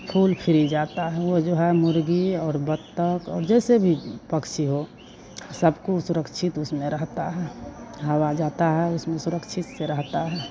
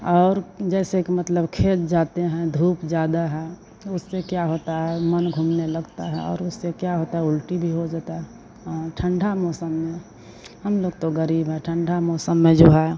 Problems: constant background noise